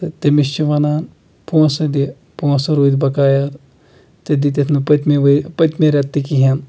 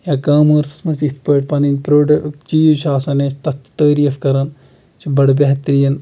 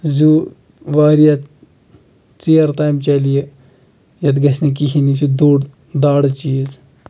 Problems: none marked